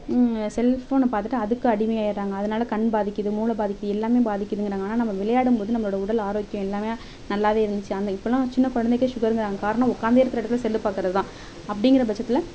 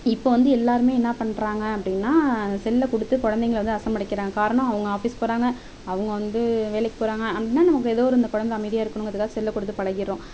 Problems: background sounds at intervals, background conversations at intervals